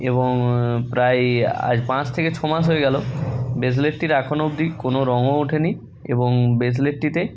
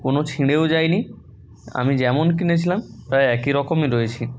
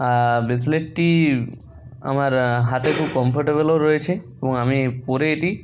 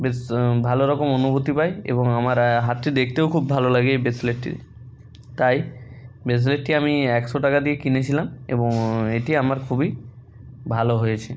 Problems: constant background noise